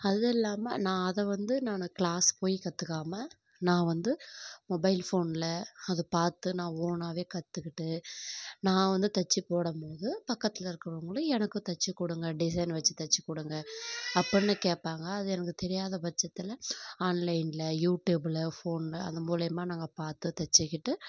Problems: none marked